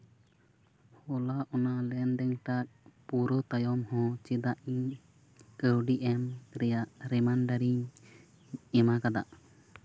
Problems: constant background noise, low volume